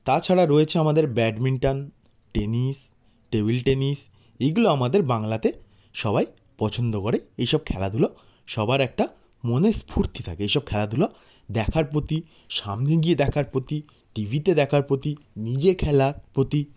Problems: none marked